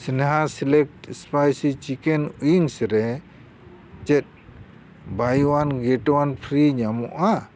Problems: constant background noise